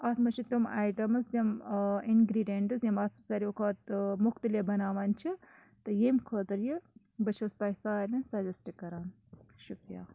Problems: none marked